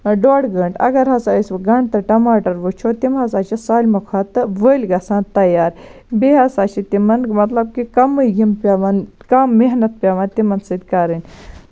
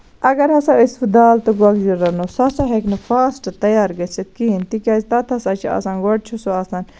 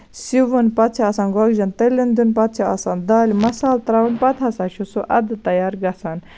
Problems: none marked